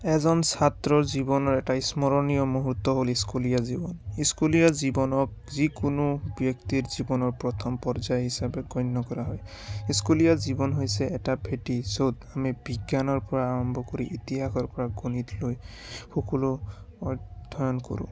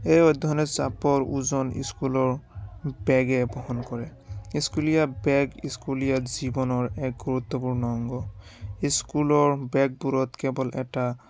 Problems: none marked